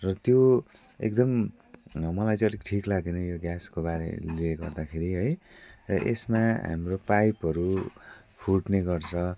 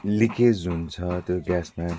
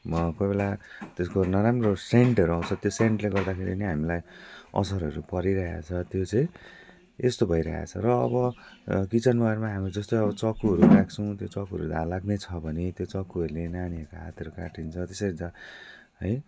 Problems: constant background noise